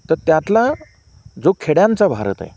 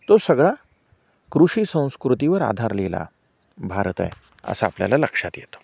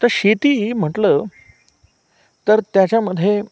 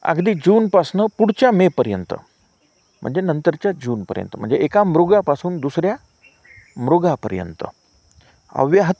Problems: constant background noise, background conversations at intervals